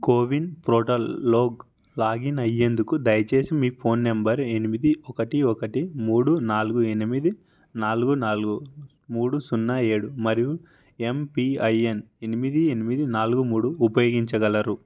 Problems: none marked